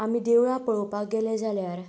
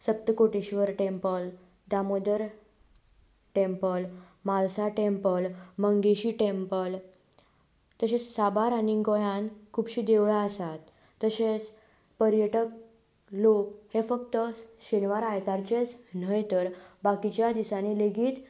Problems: background sounds at intervals